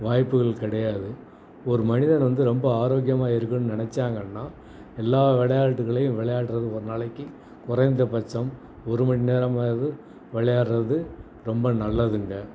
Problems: none marked